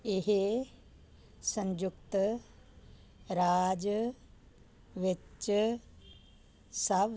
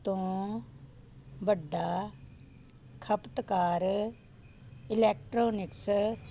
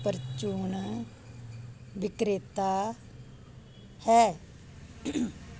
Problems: none marked